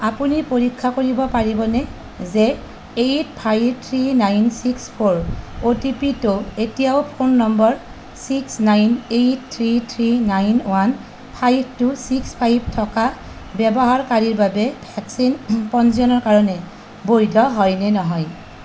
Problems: constant background noise